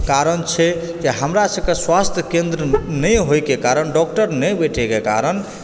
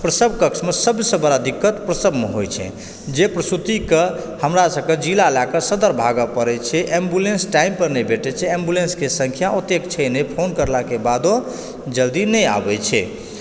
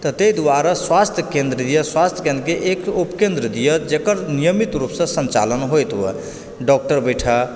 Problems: background sounds at intervals